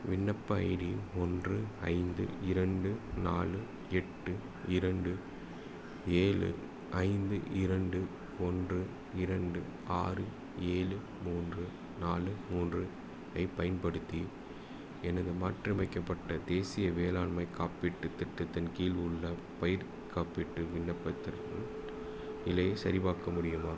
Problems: low volume